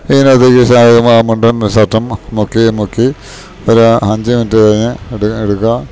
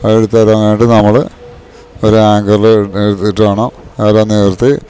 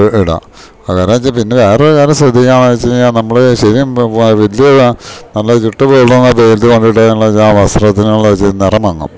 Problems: background sounds at intervals